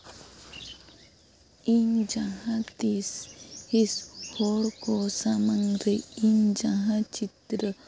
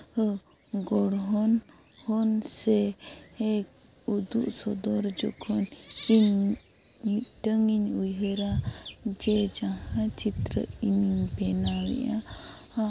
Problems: background sounds at intervals